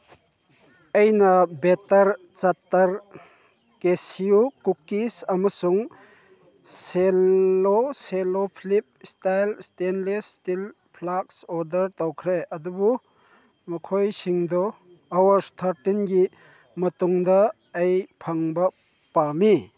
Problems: none marked